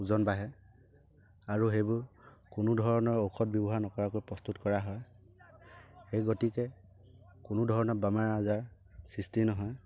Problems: none marked